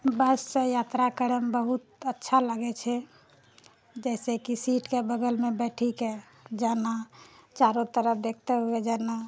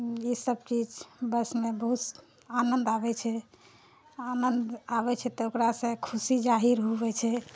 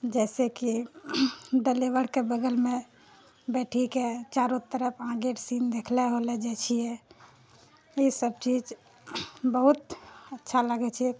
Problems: none marked